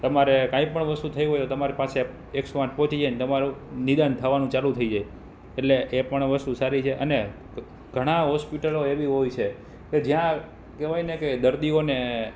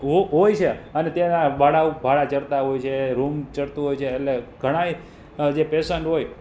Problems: background sounds at intervals